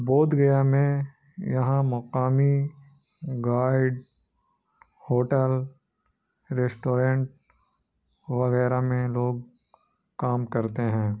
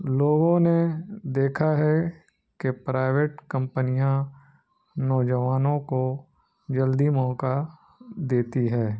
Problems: none marked